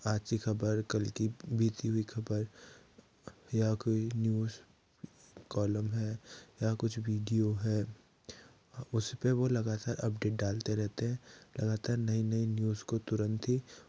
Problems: low volume